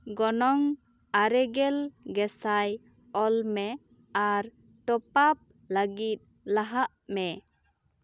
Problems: none marked